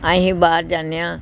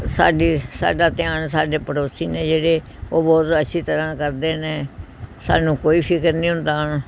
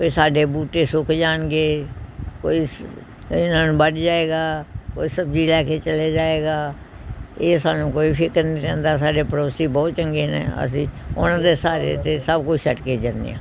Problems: background sounds at intervals